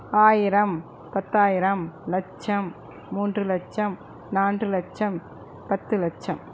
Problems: constant background noise